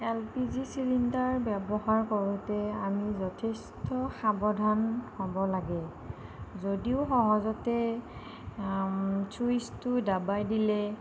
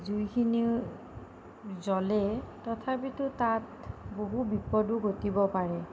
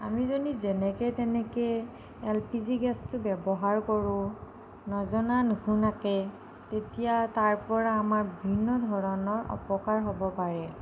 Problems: none marked